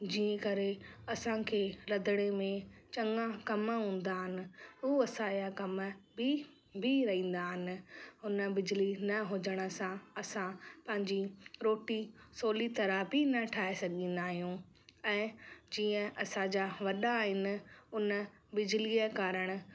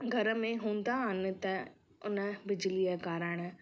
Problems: constant background noise